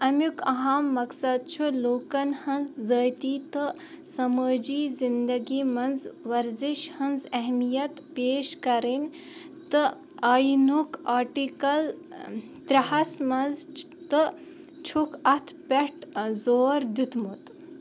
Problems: none marked